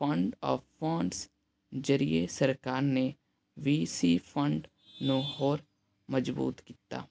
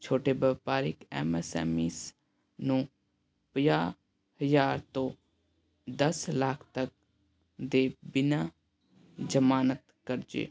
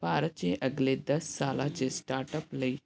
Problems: none marked